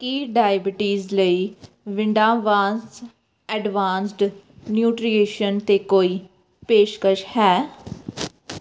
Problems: background sounds at intervals